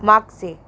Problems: background sounds at intervals